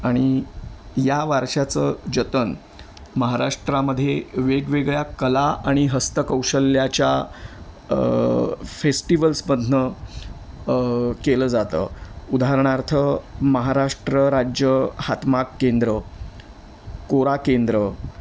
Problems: none marked